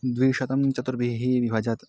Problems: background sounds at intervals